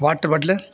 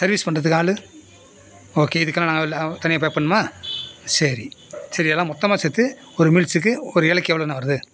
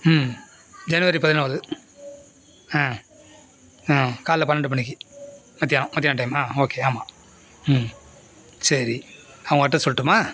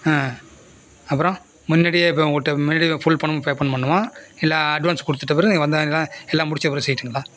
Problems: constant background noise